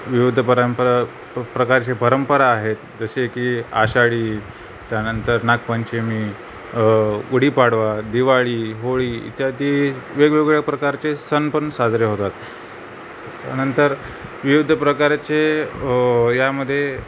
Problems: constant background noise